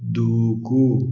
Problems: none marked